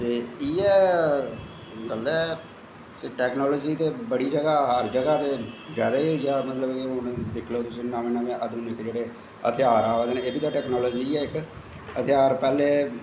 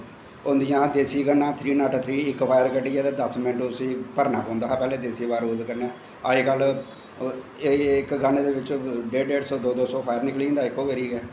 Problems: constant background noise, echo, low volume